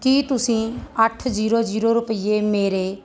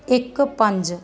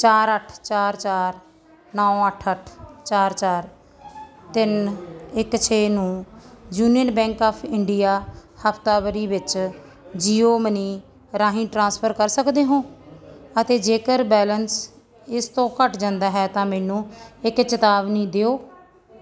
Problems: background sounds at intervals, background conversations at intervals